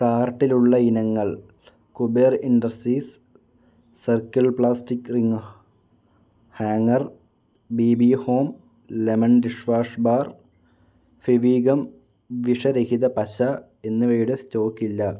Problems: none marked